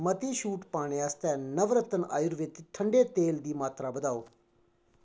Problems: none marked